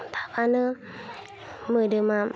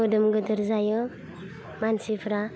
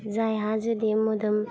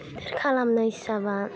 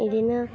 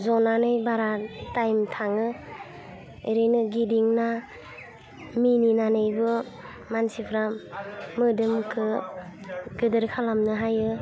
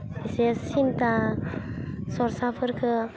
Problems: constant background noise